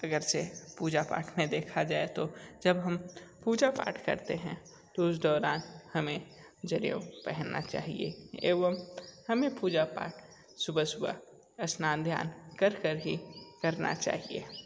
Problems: constant background noise